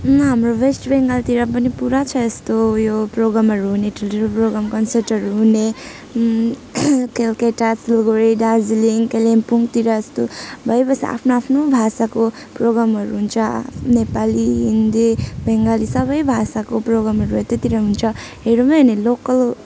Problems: none marked